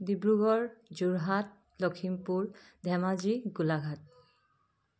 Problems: background sounds at intervals